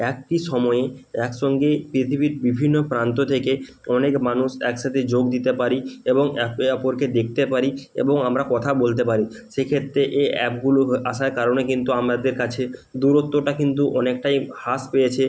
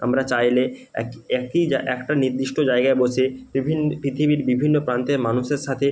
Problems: none marked